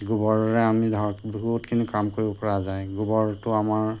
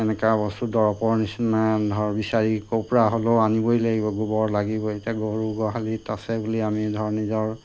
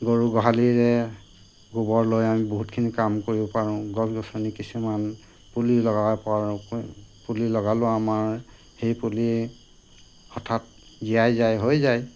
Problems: constant background noise